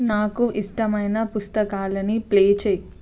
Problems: constant background noise